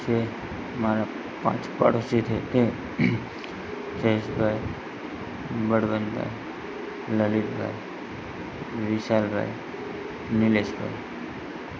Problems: constant background noise